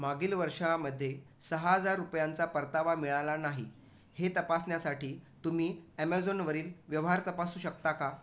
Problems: none marked